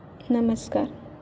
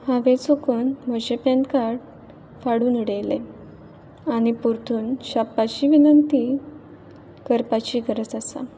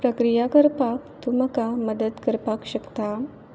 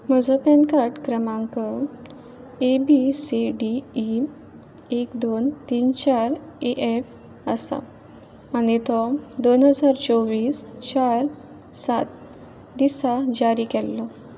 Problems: background sounds at intervals